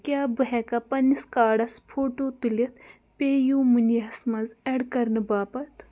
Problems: none marked